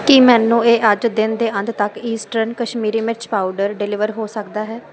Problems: none marked